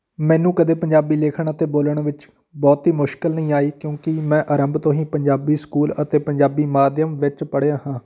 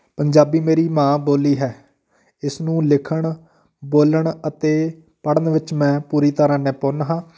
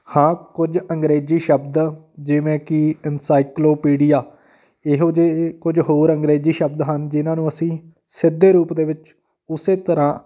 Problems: background sounds at intervals